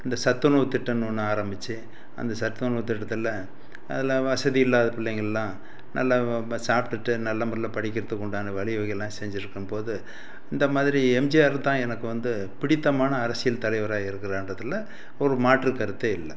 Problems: constant background noise